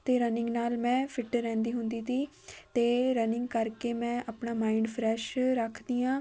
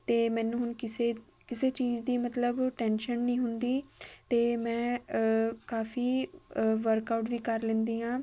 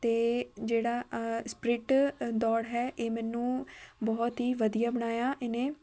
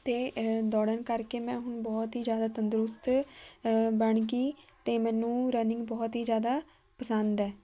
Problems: background sounds at intervals